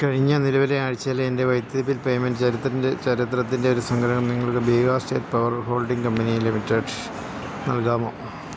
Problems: none marked